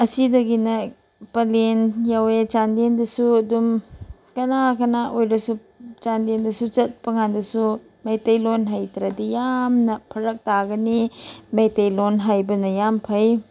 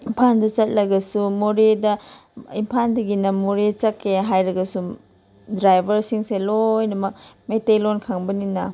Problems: none marked